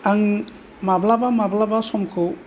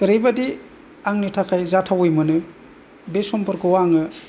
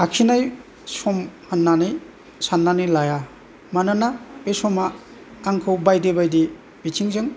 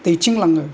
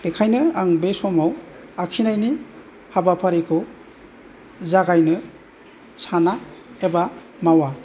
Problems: none marked